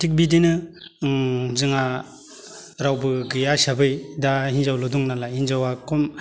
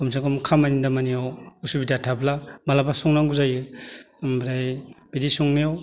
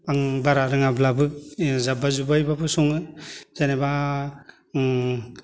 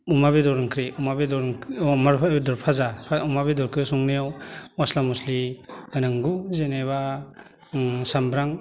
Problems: none marked